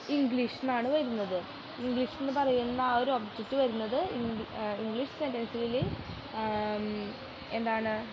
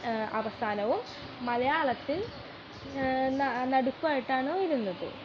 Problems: constant background noise, background conversations at intervals, low volume